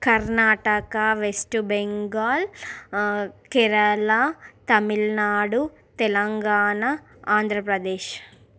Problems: none marked